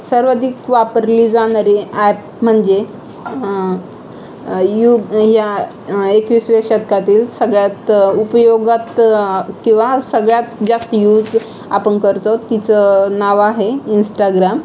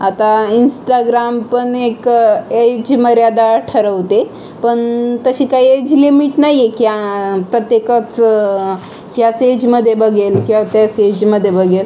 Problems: constant background noise, continuous background conversations